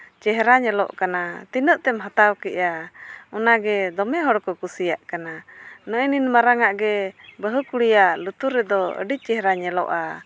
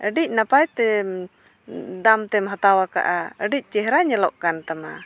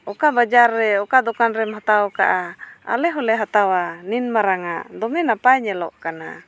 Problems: background sounds at intervals